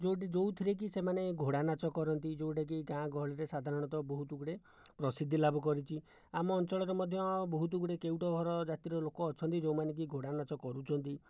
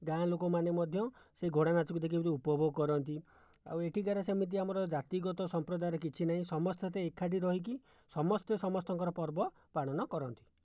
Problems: none marked